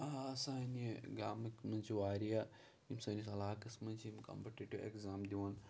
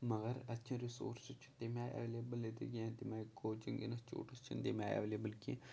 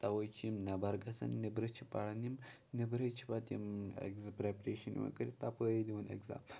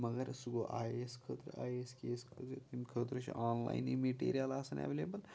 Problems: low volume